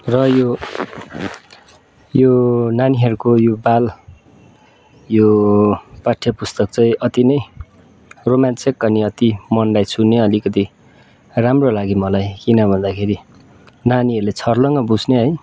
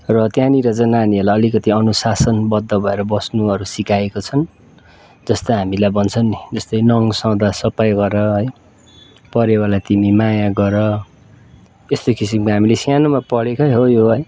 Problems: background sounds at intervals